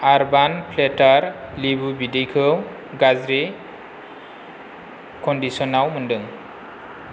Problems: constant background noise